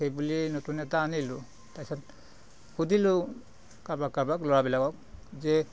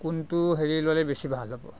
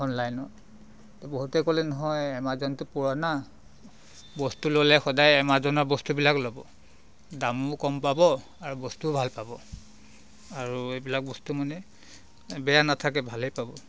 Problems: none marked